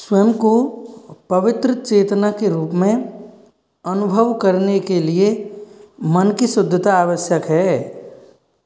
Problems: none marked